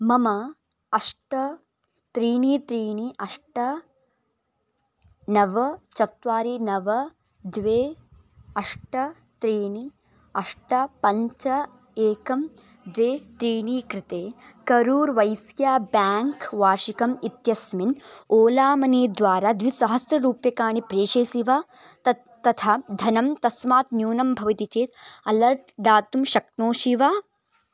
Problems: background sounds at intervals